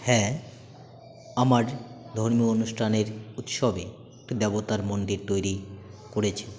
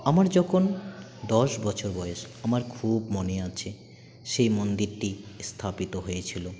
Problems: constant background noise, continuous background conversations